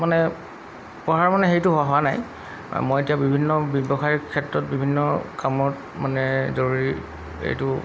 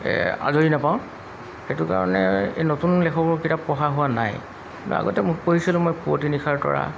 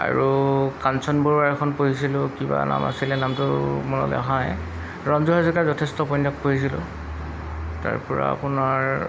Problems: background sounds at intervals